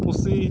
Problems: constant background noise